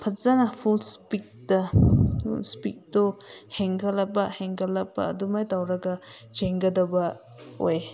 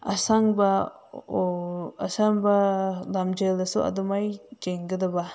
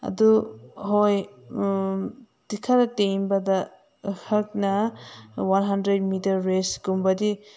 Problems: constant background noise